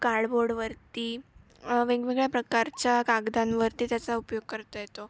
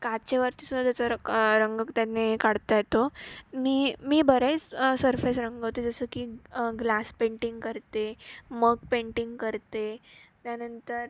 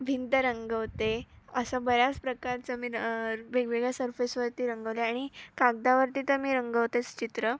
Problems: none marked